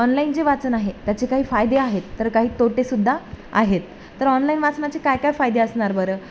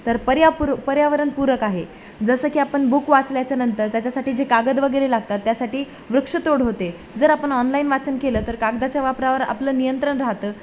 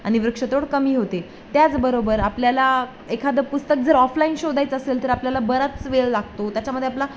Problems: constant background noise